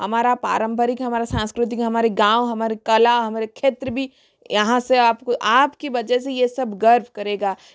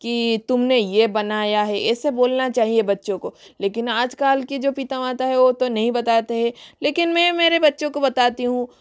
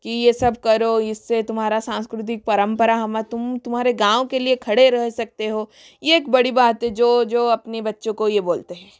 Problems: background sounds at intervals, echo